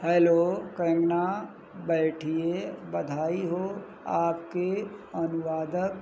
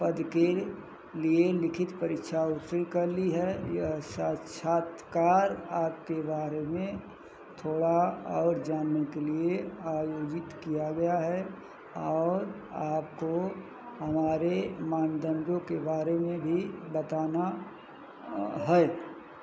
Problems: none marked